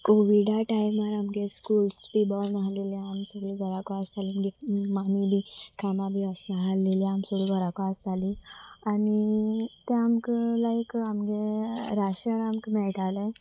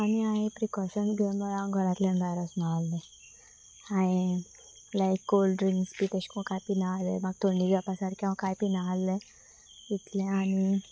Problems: constant background noise